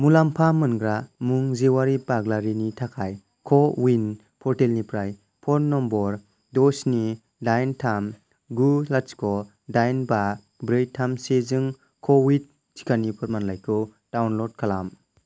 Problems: none marked